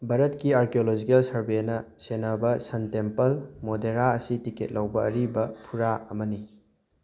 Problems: none marked